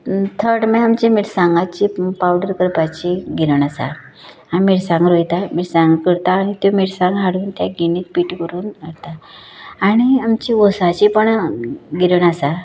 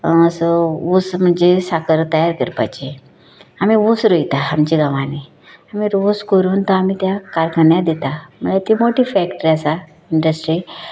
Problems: none marked